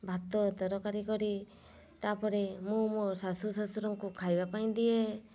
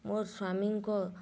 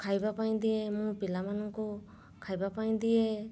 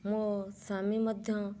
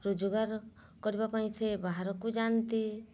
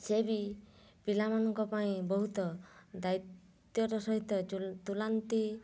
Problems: none marked